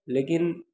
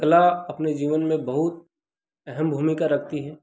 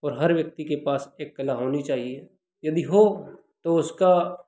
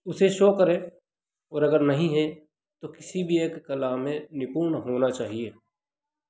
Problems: constant background noise